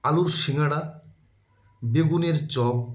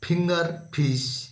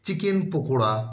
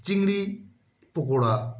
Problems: background sounds at intervals